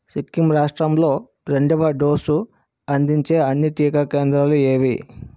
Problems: constant background noise